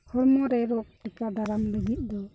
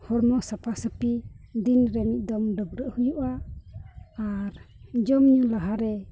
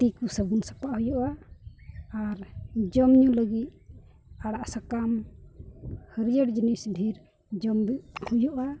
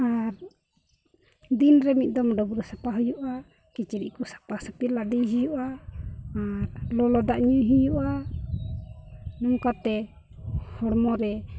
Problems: none marked